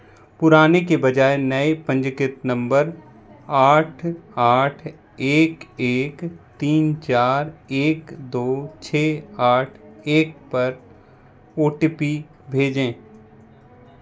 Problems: none marked